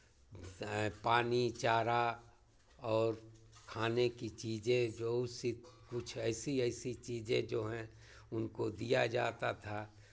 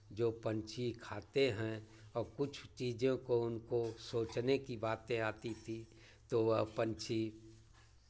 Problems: constant background noise